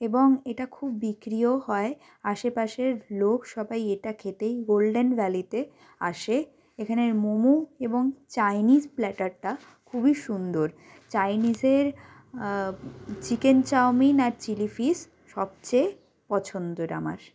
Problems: none marked